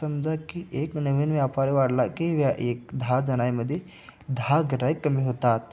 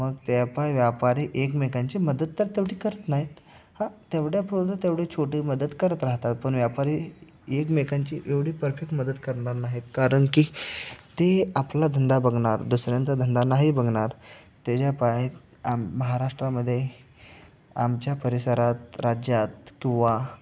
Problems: none marked